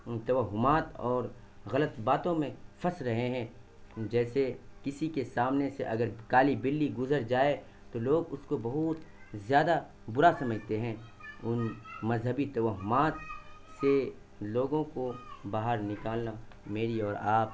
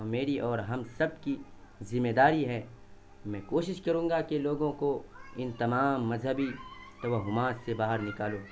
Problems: constant background noise